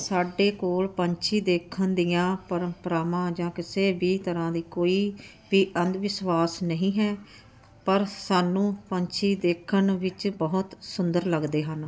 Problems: none marked